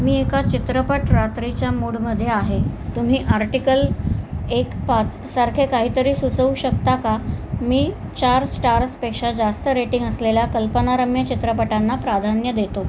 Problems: none marked